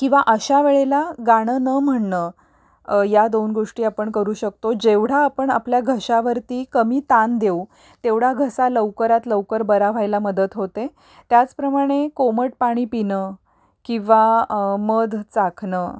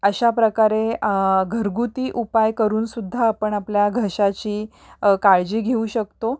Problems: none marked